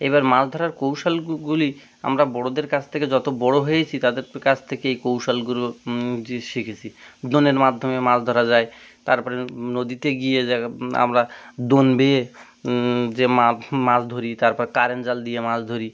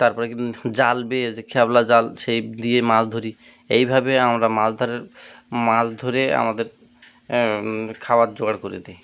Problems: constant background noise